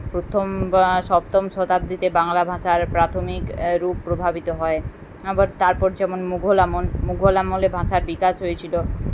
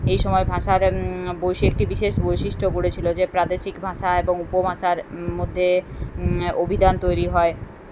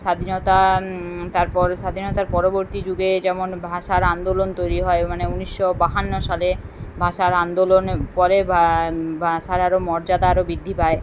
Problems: none marked